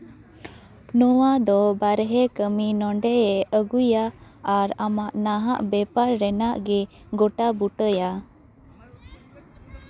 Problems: background conversations at intervals